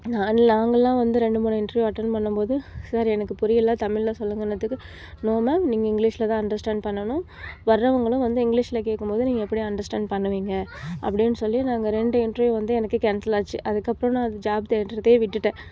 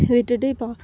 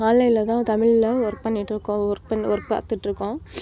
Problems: none marked